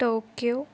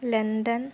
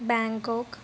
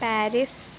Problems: background sounds at intervals